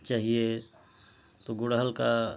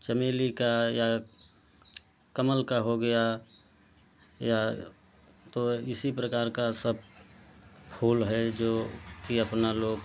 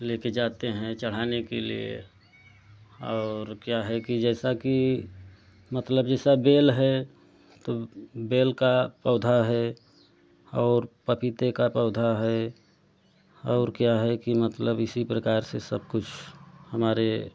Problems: constant background noise